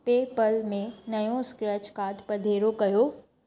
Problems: constant background noise